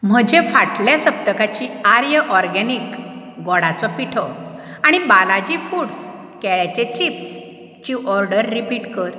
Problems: constant background noise